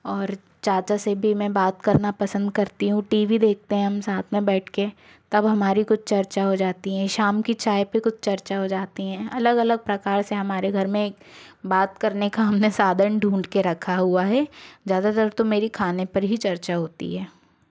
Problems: background sounds at intervals